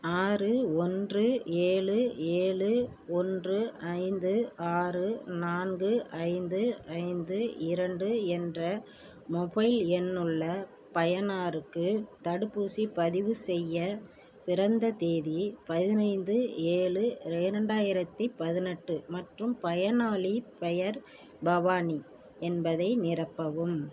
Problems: none marked